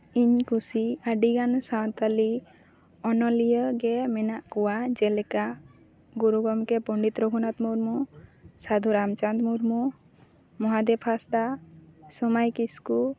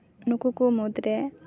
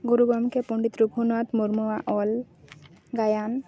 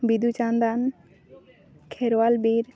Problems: background sounds at intervals